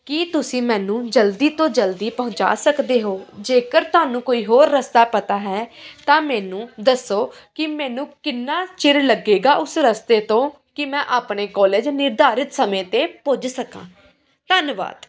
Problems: continuous background conversations